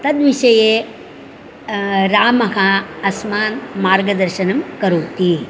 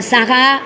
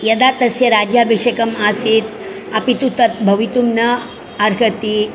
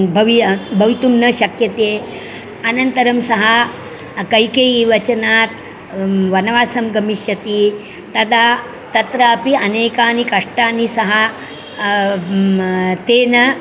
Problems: constant background noise, continuous background conversations